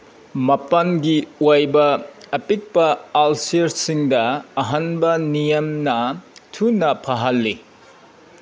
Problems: background sounds at intervals